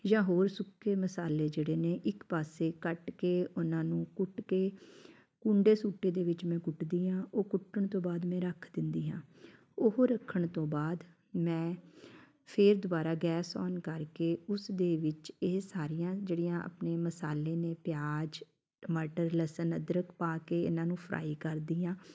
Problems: background sounds at intervals, background conversations at intervals